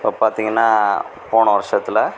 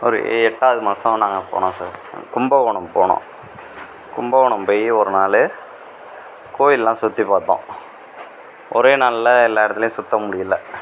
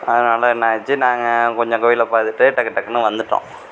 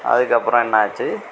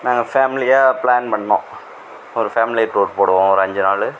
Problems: none marked